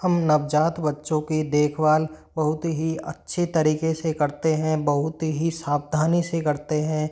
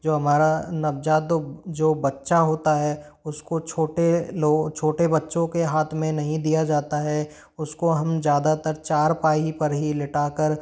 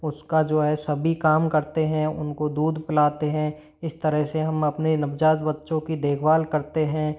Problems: none marked